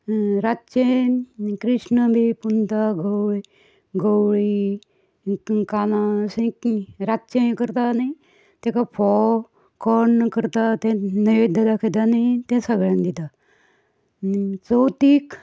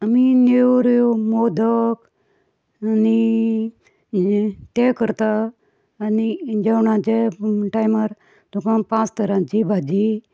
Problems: background sounds at intervals, background conversations at intervals